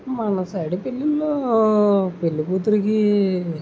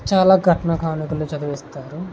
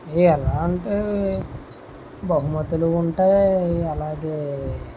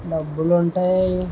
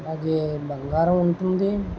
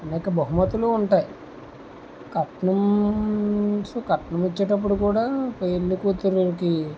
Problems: constant background noise